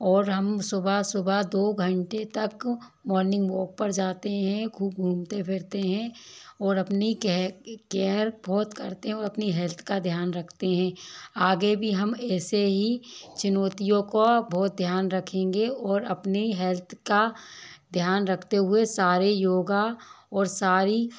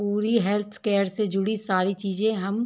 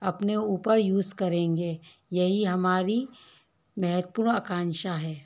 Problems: constant background noise, low volume